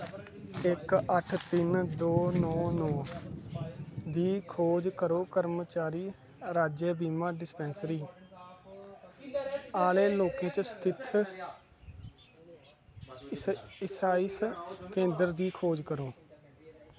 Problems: constant background noise